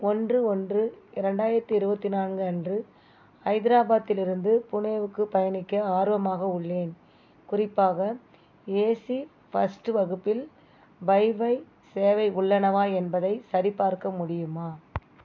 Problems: background sounds at intervals